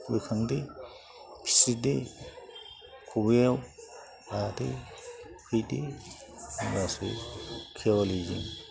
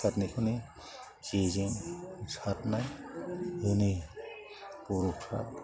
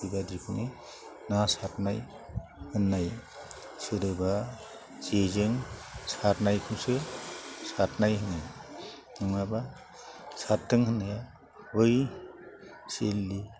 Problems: constant background noise